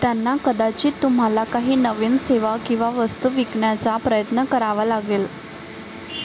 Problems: constant background noise, continuous background conversations